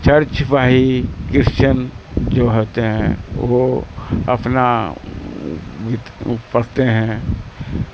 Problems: constant background noise